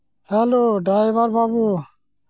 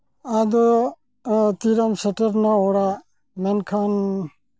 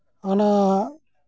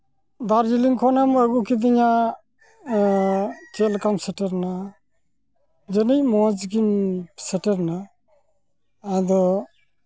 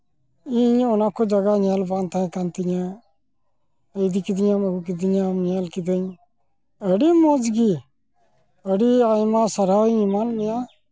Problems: constant background noise